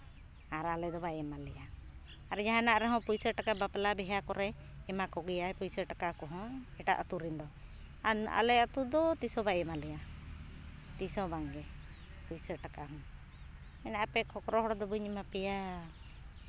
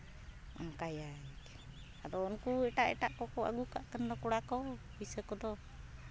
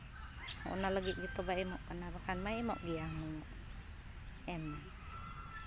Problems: background sounds at intervals, continuous background conversations